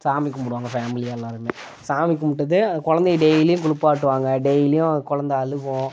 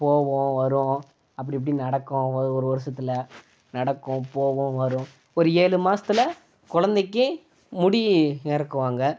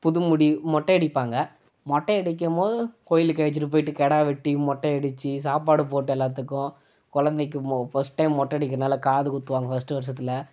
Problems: none marked